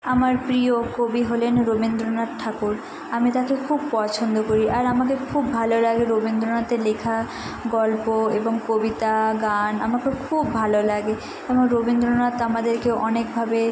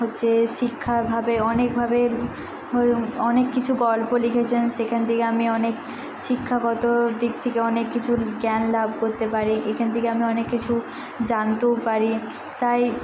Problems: none marked